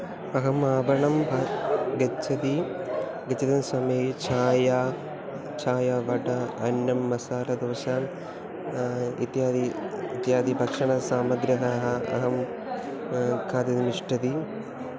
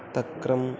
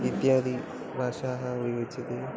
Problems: background sounds at intervals